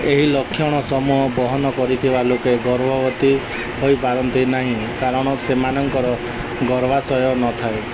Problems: none marked